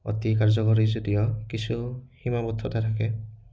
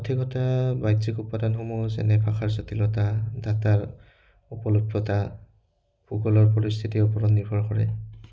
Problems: none marked